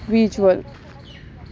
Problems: constant background noise